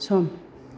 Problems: constant background noise